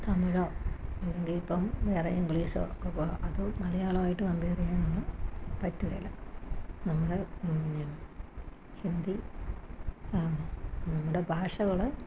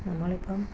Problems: constant background noise, low volume